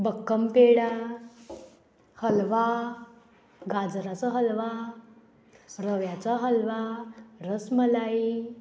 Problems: constant background noise